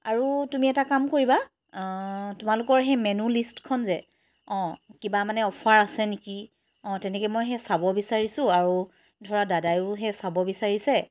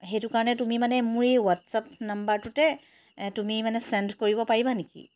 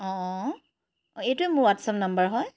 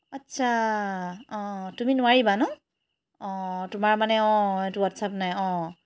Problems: constant background noise